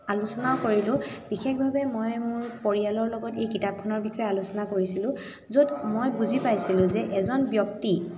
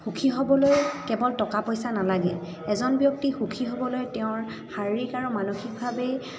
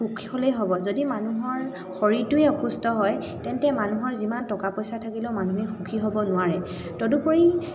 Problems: background sounds at intervals, continuous background conversations, echo